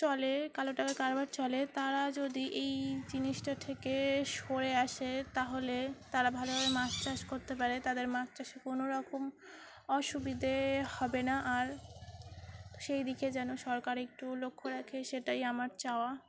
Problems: constant background noise, background conversations at intervals